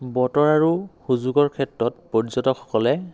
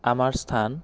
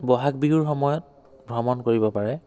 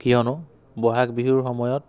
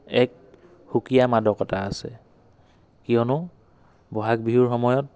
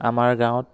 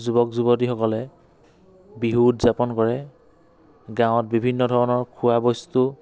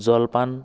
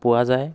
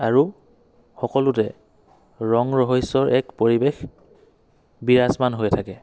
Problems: none marked